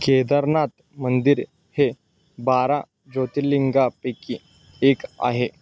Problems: constant background noise